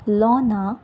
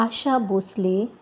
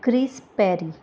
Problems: none marked